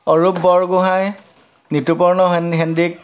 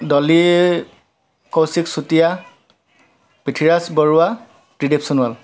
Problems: none marked